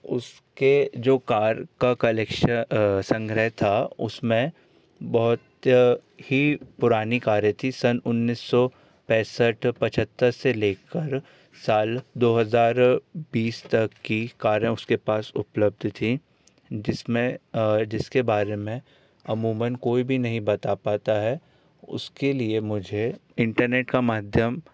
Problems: none marked